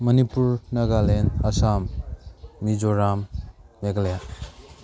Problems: background sounds at intervals